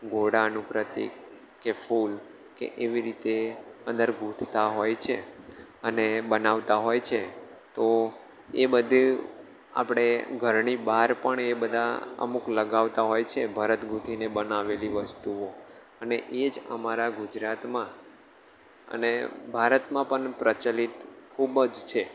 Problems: constant background noise